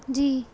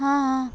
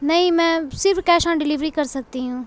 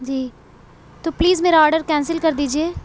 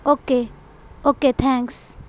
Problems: background sounds at intervals